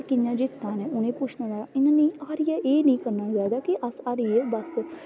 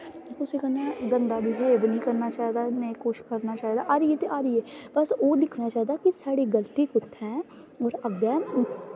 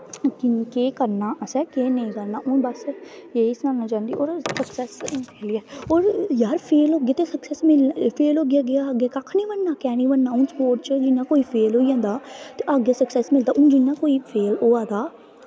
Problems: constant background noise